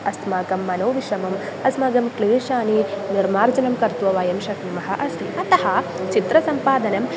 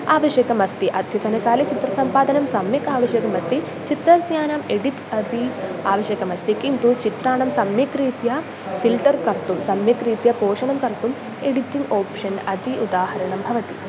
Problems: constant background noise